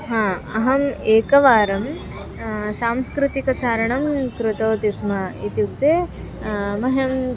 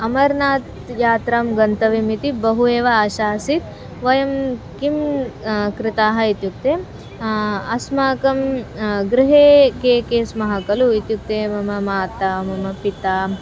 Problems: background sounds at intervals